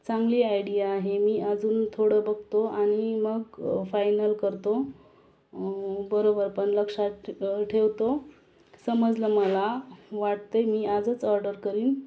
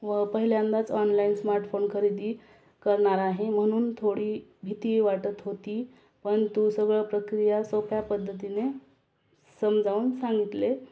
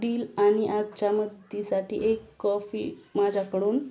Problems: constant background noise